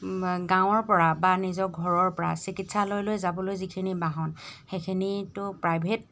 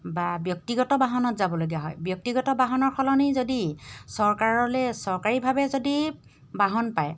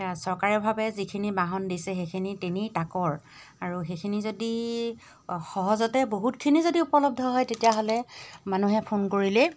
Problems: none marked